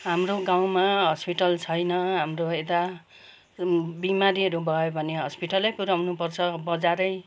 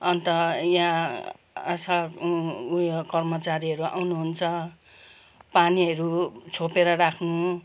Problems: background sounds at intervals